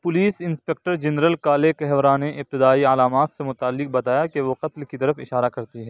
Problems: none marked